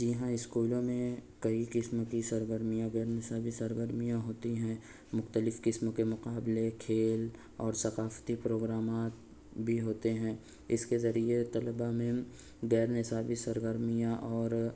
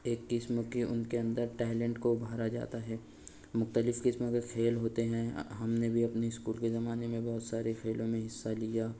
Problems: constant background noise